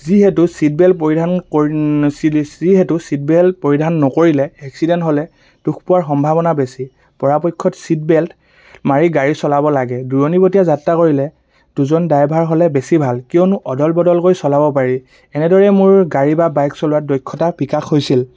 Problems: constant background noise